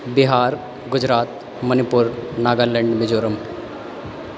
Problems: constant background noise